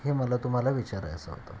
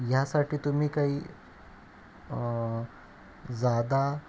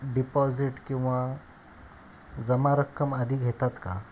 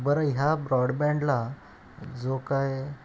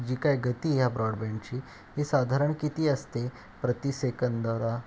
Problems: constant background noise